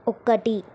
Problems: constant background noise